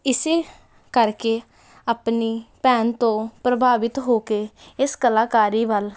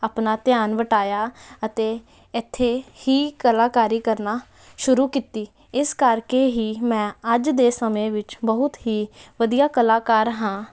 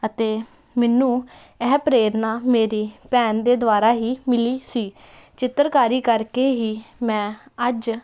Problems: constant background noise